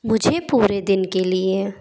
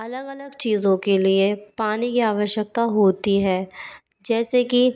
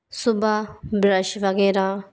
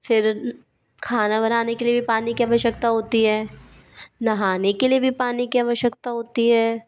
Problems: constant background noise